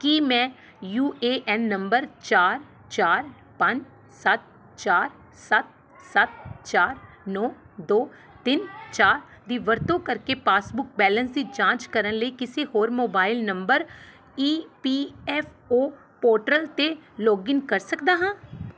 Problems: background conversations at intervals